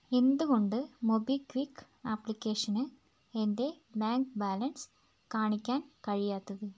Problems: background sounds at intervals